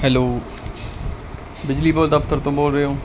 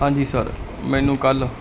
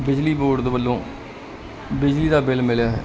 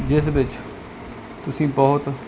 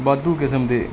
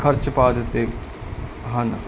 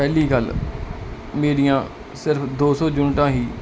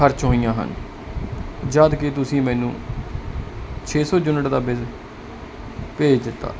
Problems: background sounds at intervals